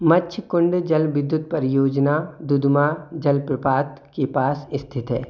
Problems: constant background noise